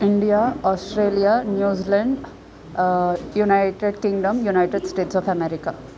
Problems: constant background noise, continuous background conversations